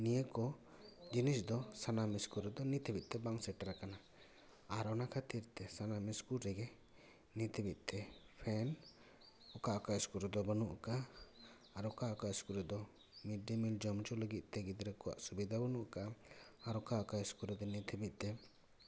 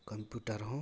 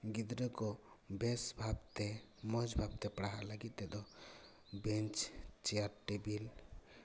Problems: none marked